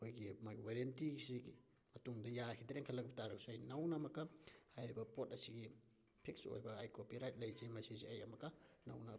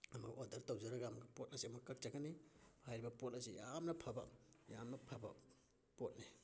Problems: background sounds at intervals